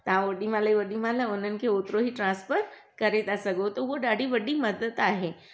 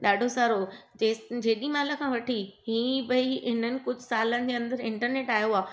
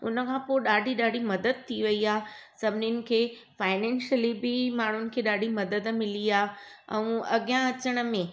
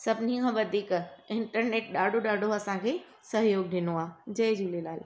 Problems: none marked